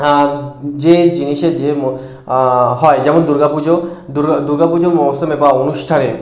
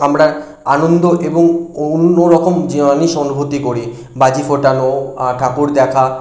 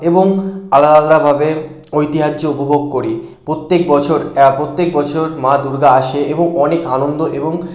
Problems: constant background noise